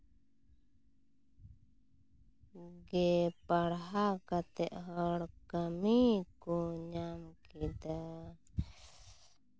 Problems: constant background noise